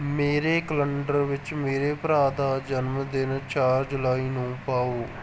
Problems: none marked